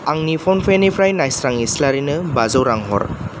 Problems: none marked